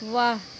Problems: constant background noise